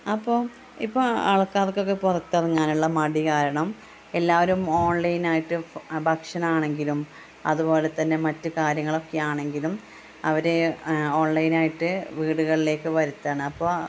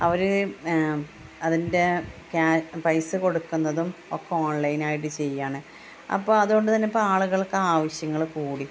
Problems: constant background noise, low volume